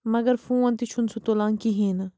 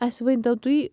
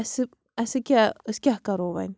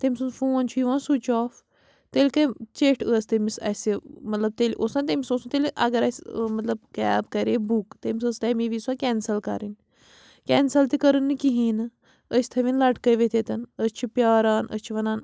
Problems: background sounds at intervals